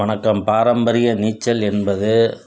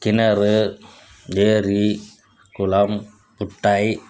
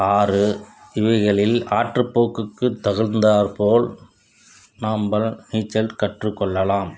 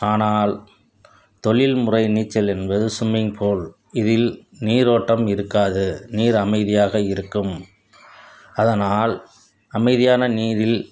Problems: background sounds at intervals